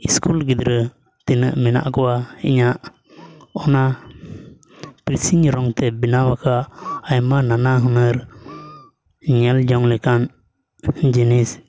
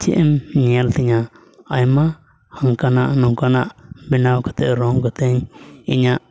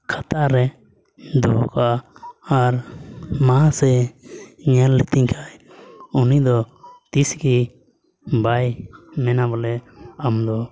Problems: background sounds at intervals